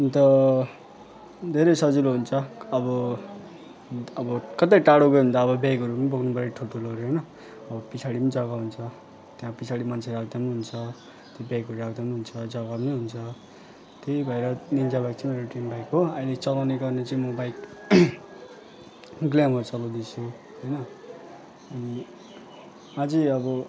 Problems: constant background noise, continuous background conversations